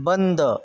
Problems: constant background noise